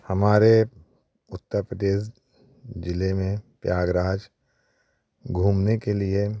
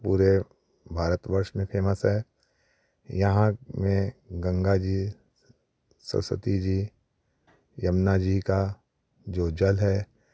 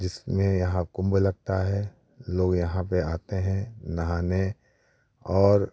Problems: none marked